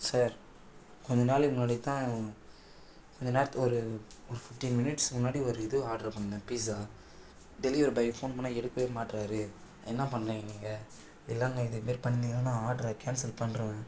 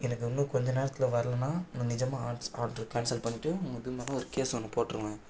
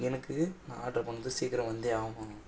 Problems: background sounds at intervals, low volume